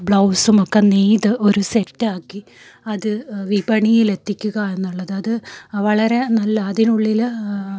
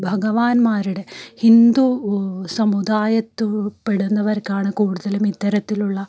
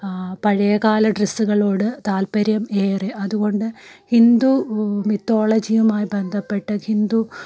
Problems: none marked